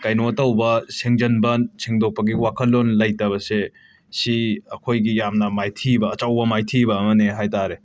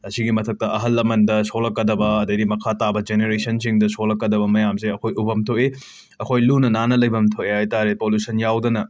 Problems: background conversations at intervals